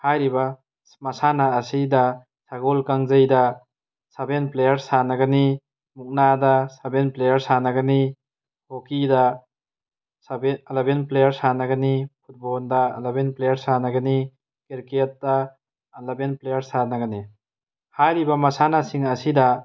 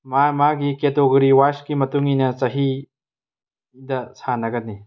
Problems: none marked